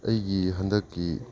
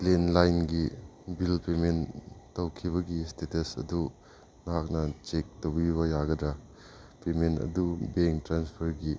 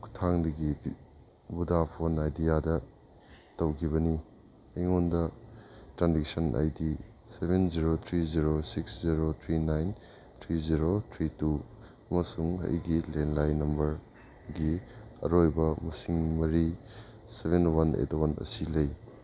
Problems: background sounds at intervals